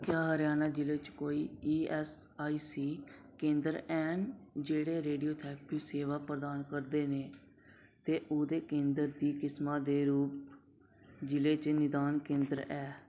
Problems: none marked